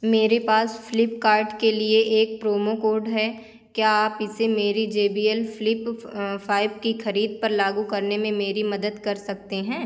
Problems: constant background noise